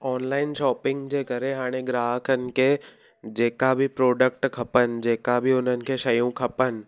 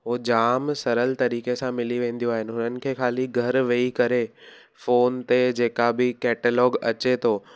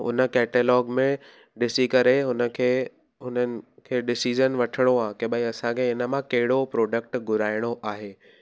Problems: none marked